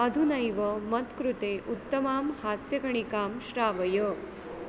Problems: constant background noise